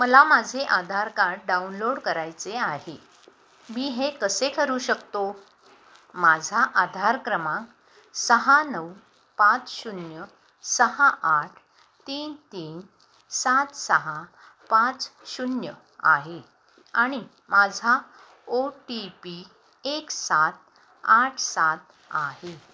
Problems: none marked